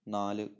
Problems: low volume